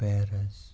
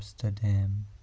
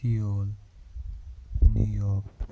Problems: background sounds at intervals, low volume